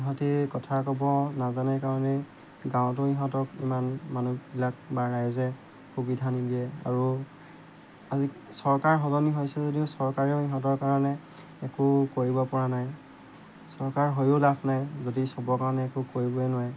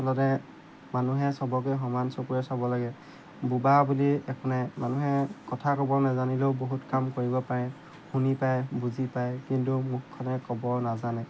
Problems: background sounds at intervals